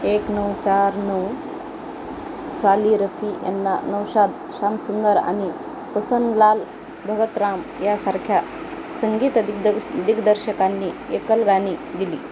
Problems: constant background noise